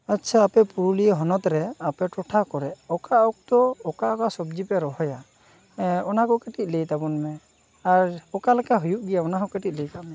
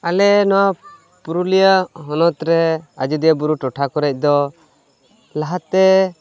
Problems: constant background noise, continuous background conversations